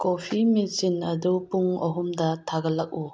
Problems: background sounds at intervals